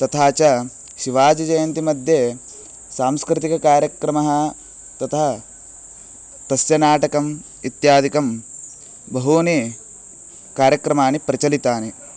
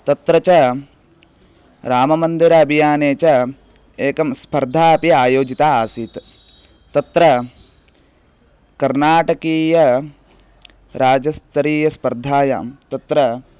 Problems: constant background noise